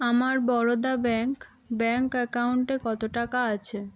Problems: background sounds at intervals